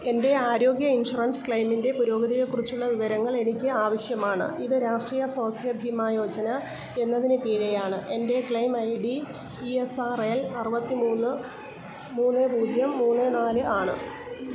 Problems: low volume